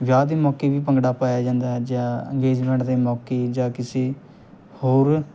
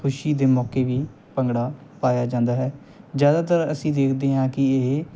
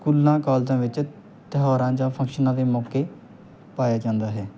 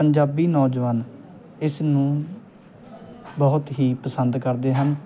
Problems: background sounds at intervals